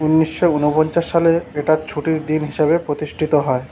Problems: none marked